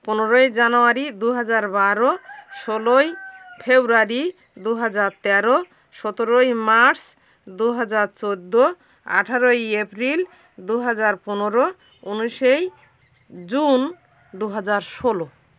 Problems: background sounds at intervals